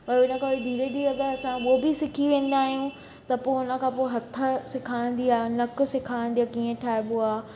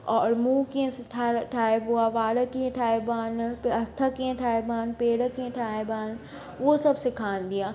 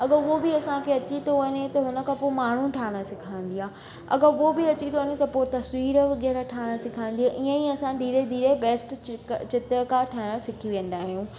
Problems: constant background noise, echo